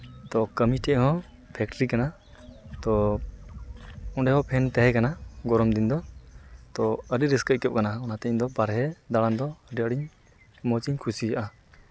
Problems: constant background noise